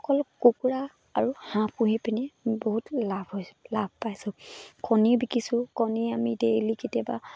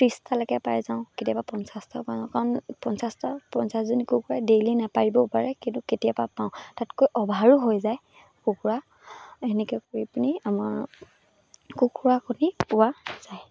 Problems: none marked